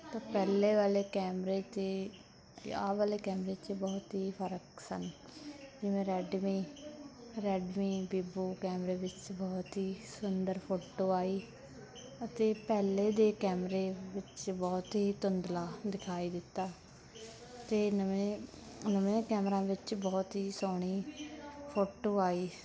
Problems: continuous background conversations